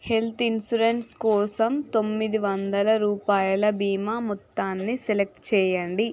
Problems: constant background noise